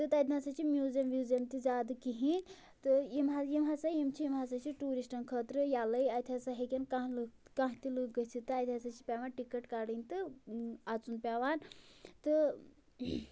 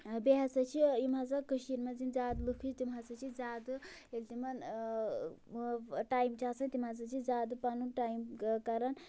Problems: none marked